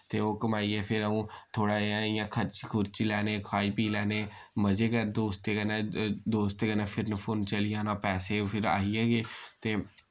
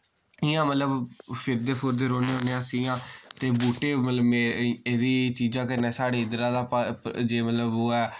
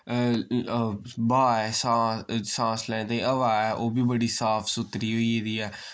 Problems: none marked